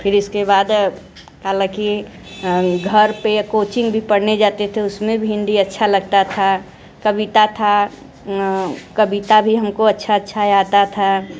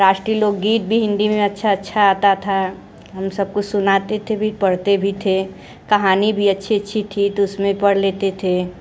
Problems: none marked